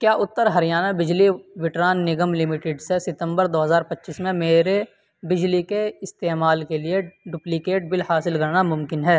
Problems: none marked